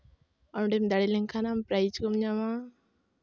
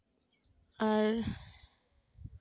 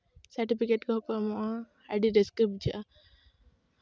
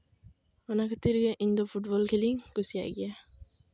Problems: background sounds at intervals